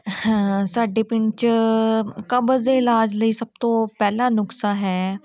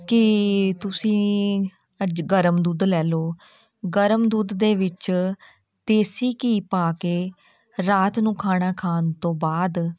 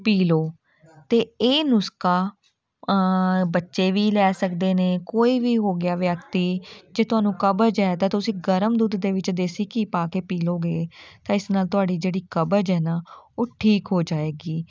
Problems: background sounds at intervals, continuous background conversations